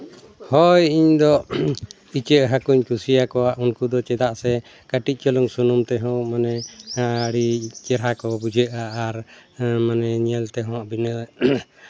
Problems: none marked